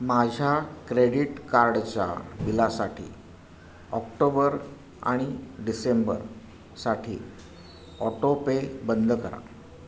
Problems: constant background noise